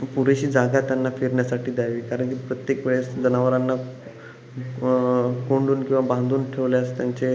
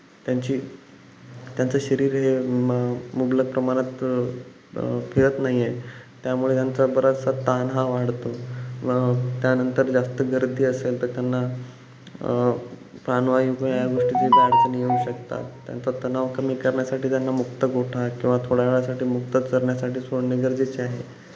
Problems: background sounds at intervals